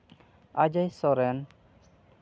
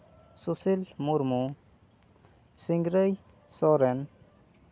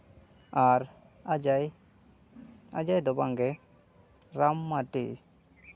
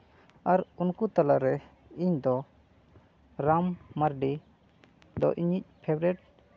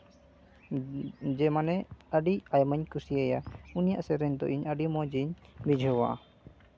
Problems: none marked